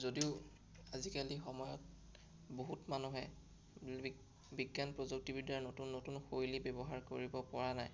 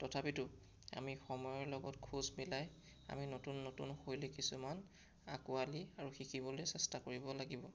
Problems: none marked